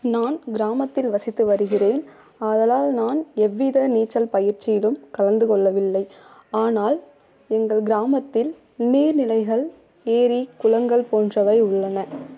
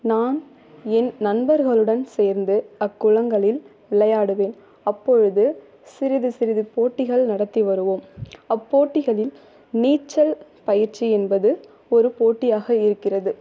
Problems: low volume